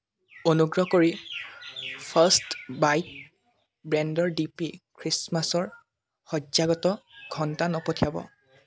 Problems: constant background noise